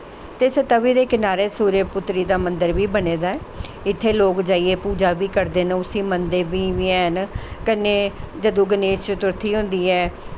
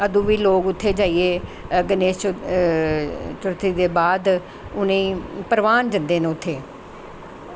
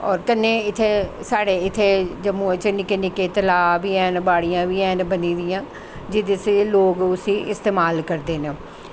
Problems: constant background noise